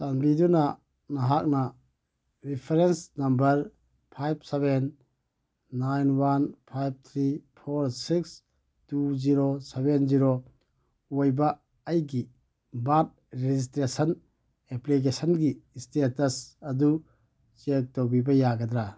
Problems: none marked